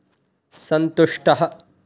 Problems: none marked